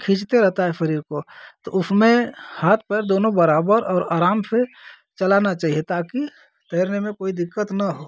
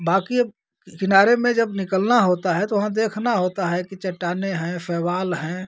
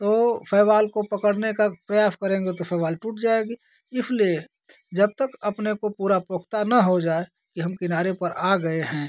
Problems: constant background noise